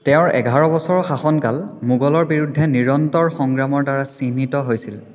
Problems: background conversations at intervals, echo